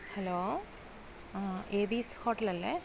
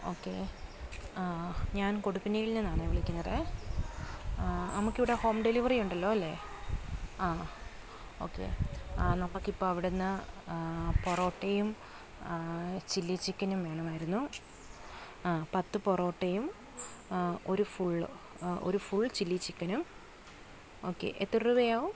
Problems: background sounds at intervals, low volume